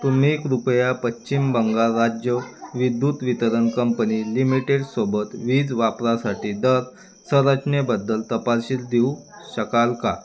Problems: none marked